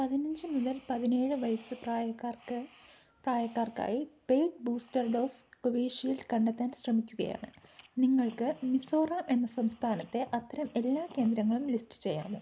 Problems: background sounds at intervals, low volume